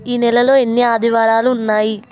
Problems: constant background noise